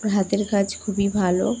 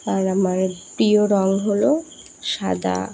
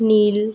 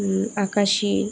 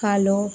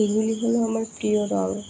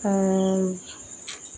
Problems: background sounds at intervals